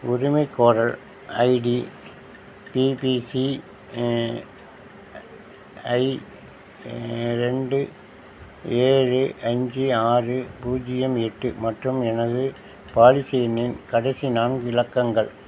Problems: none marked